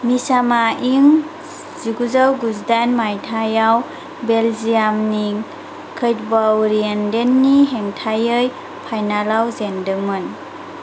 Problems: constant background noise